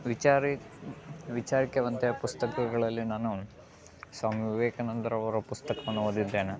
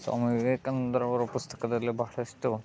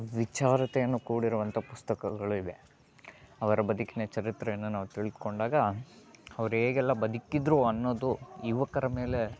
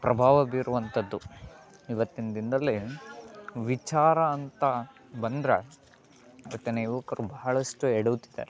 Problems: none marked